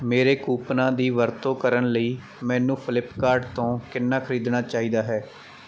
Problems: background sounds at intervals